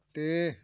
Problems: none marked